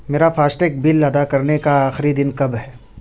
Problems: none marked